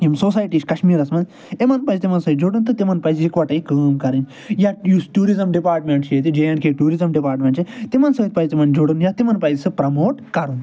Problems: none marked